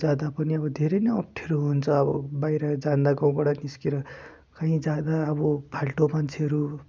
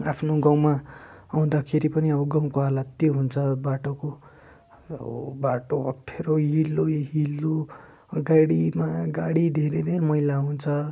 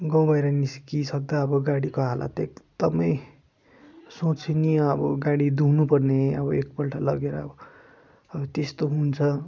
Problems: none marked